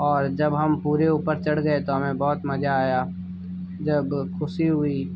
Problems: background sounds at intervals